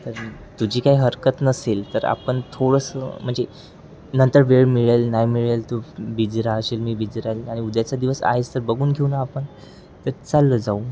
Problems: constant background noise, background conversations at intervals